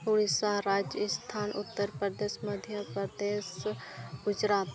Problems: constant background noise, low volume